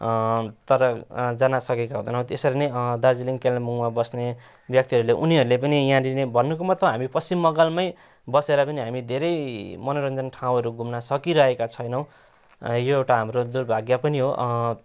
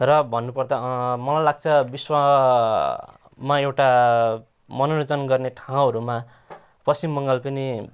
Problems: none marked